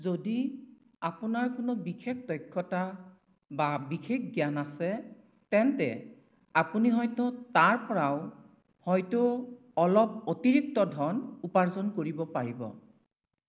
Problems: none marked